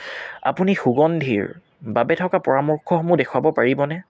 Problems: none marked